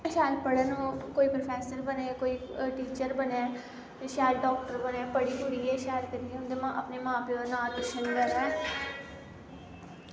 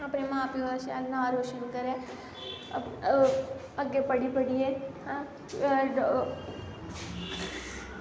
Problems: constant background noise